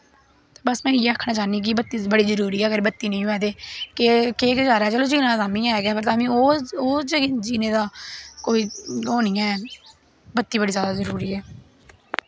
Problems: constant background noise